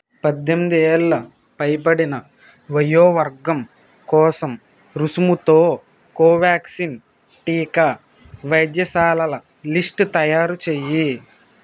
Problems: constant background noise